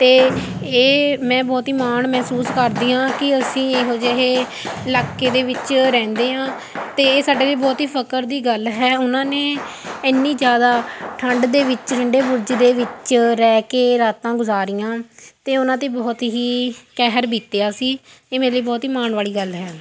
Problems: constant background noise